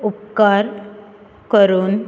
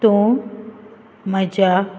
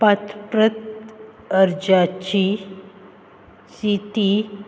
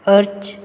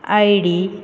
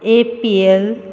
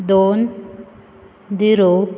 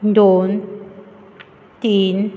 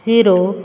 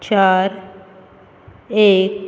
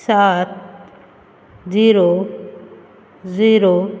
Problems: constant background noise